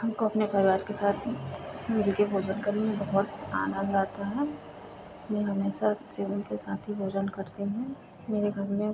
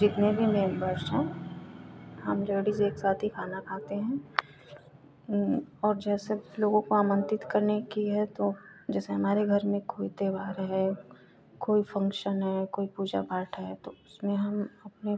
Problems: constant background noise